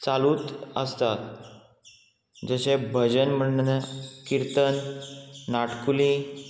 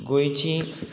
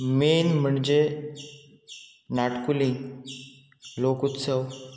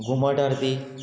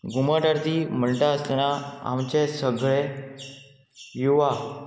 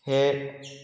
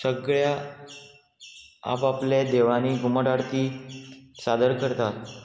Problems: constant background noise